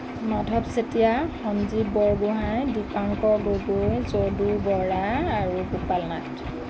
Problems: constant background noise